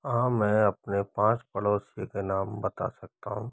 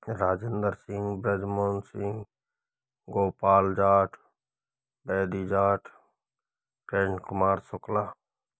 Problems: low volume